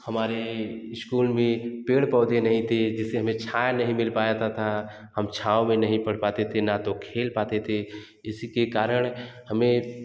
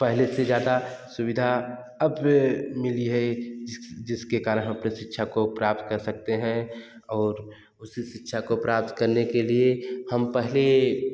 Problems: background sounds at intervals